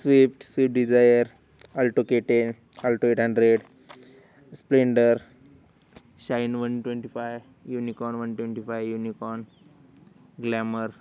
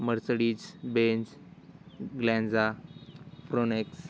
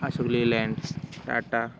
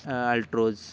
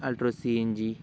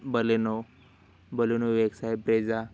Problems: none marked